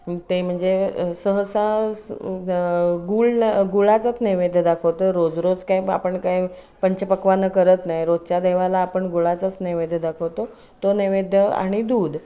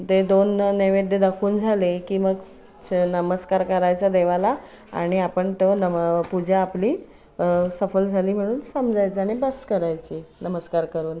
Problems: none marked